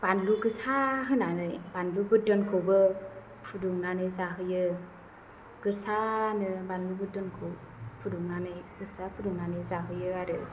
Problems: none marked